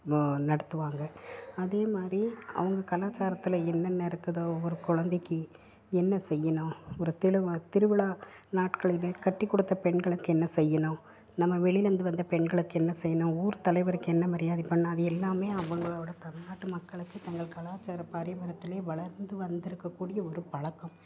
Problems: background sounds at intervals, low volume